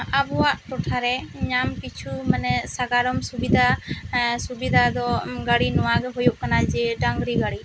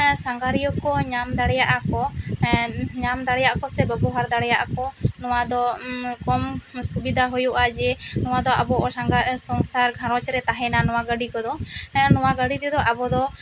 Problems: constant background noise